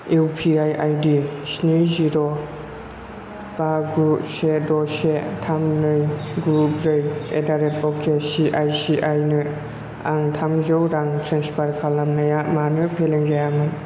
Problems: none marked